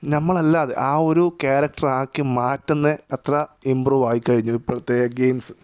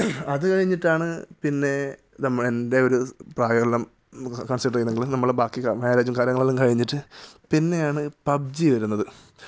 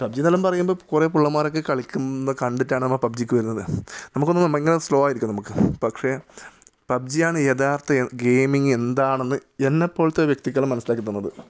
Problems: none marked